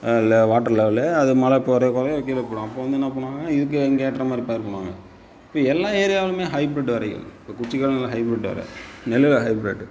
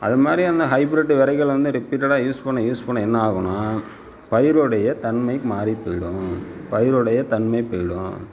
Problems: constant background noise